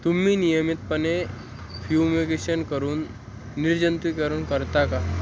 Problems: constant background noise